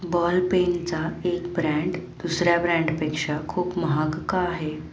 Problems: background sounds at intervals